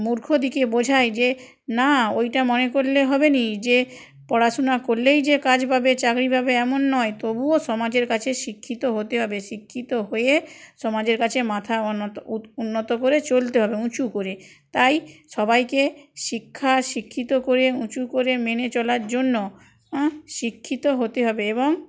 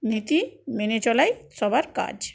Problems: none marked